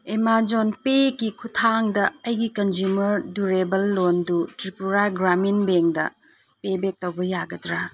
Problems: none marked